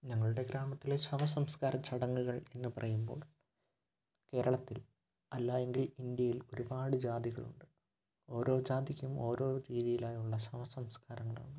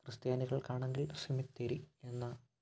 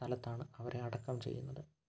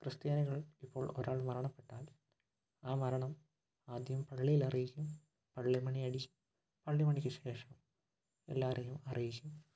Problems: low volume